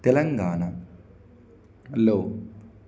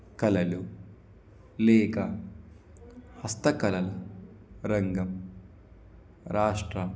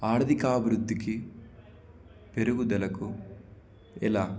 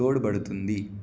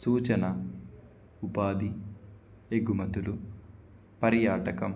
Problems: none marked